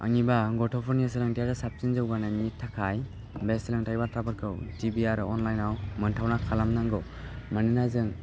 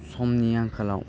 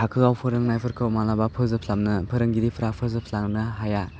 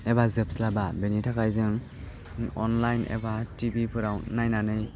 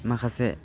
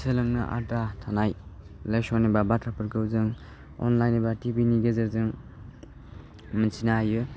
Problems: constant background noise